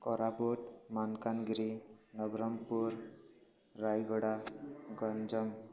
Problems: none marked